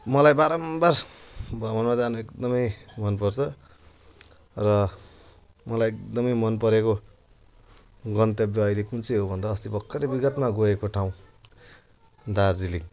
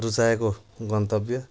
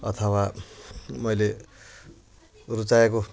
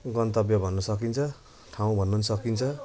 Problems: constant background noise